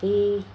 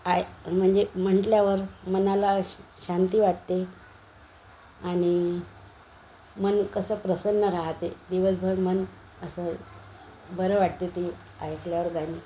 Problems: constant background noise